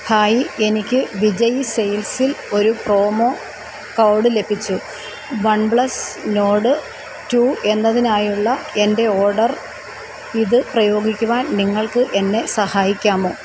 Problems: constant background noise